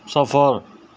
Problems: none marked